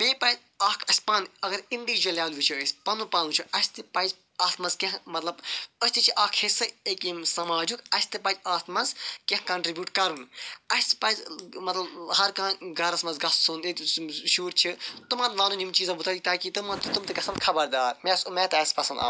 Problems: none marked